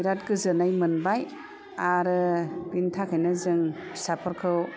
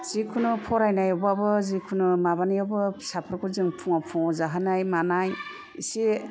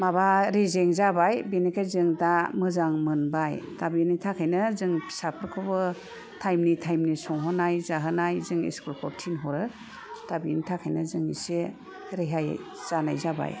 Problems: none marked